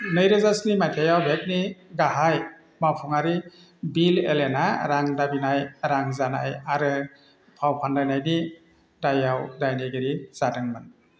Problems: constant background noise